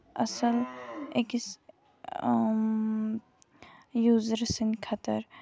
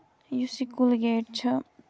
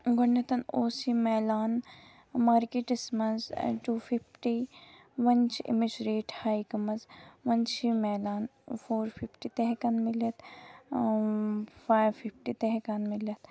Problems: background sounds at intervals